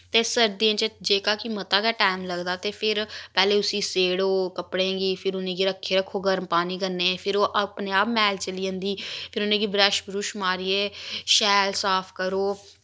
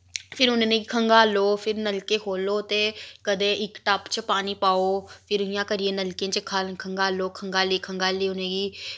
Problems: none marked